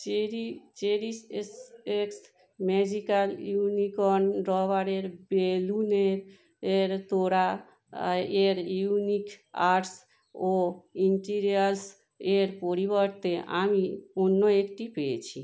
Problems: constant background noise